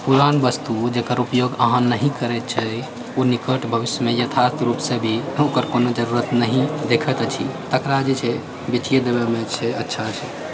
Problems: background sounds at intervals